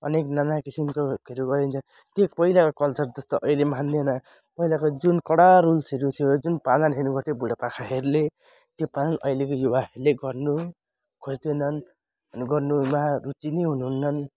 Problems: none marked